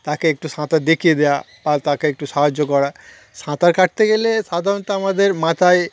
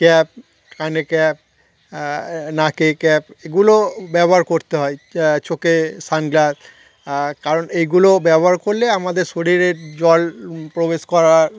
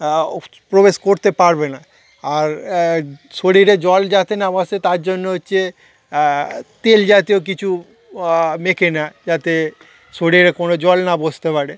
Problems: constant background noise, continuous background conversations